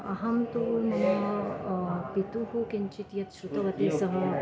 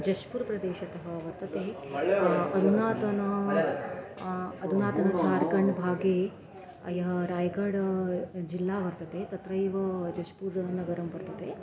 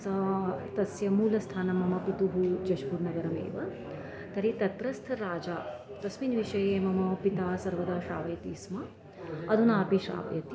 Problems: constant background noise, continuous background conversations